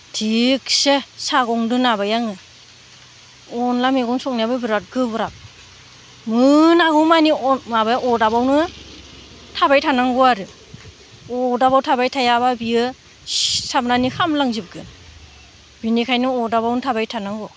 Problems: none marked